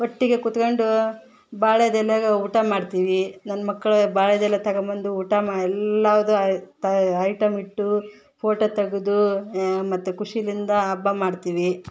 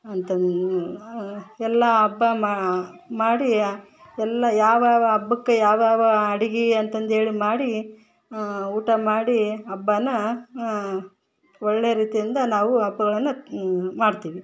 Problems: background sounds at intervals